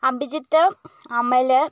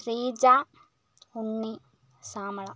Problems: low volume